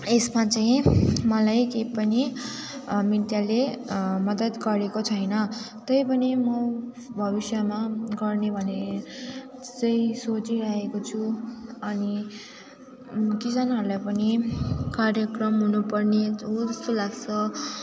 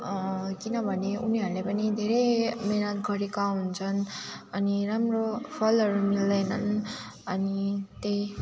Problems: continuous background conversations